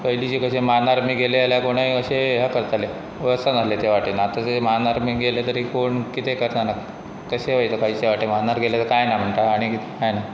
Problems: constant background noise